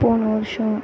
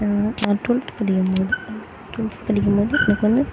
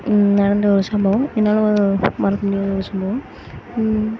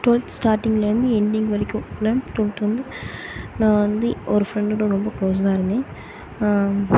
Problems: background sounds at intervals